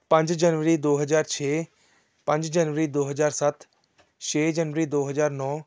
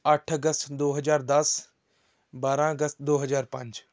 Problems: background conversations at intervals